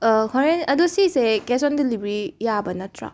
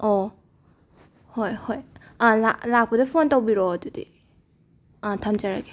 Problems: background sounds at intervals